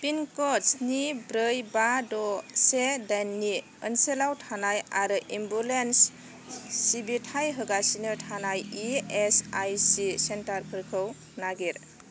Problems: constant background noise